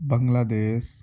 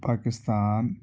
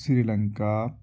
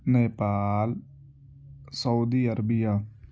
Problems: constant background noise